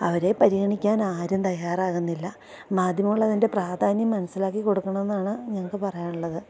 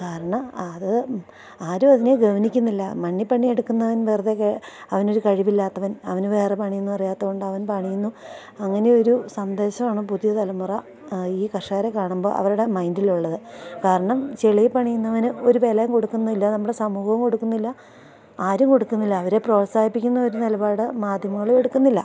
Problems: none marked